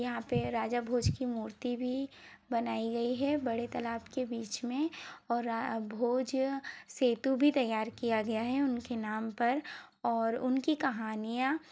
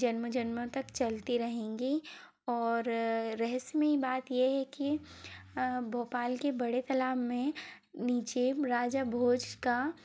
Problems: none marked